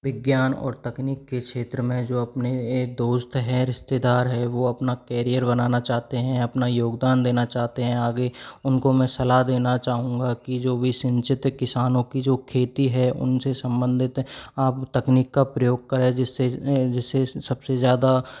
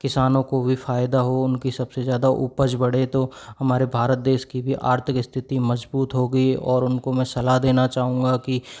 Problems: background sounds at intervals